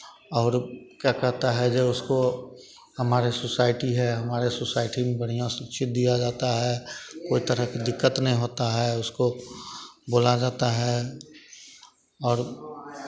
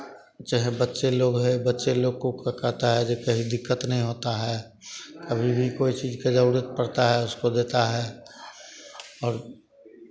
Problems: none marked